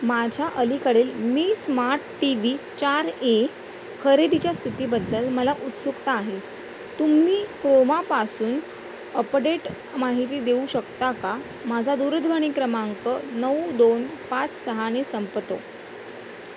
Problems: constant background noise